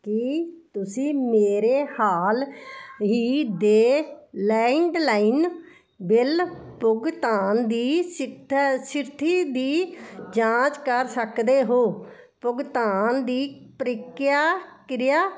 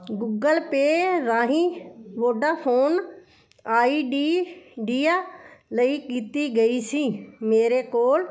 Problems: continuous background conversations